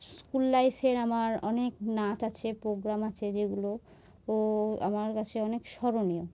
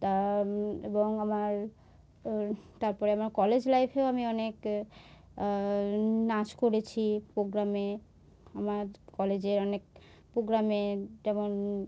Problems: none marked